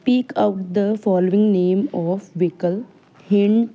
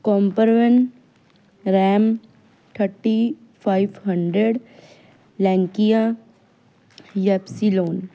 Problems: none marked